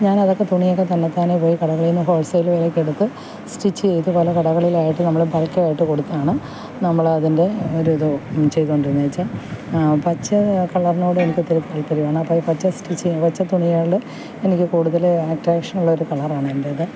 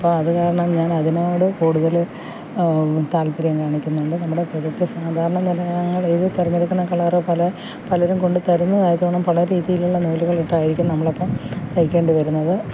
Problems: constant background noise, low volume